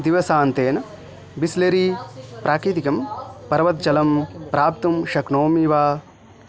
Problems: continuous background conversations